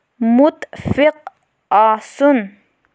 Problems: none marked